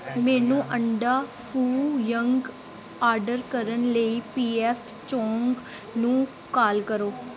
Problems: background sounds at intervals